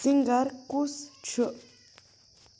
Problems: background sounds at intervals